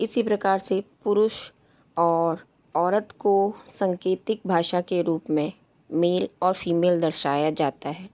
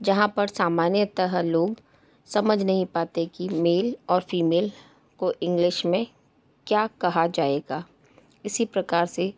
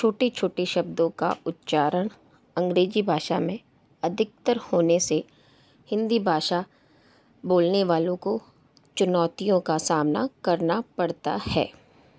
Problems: background sounds at intervals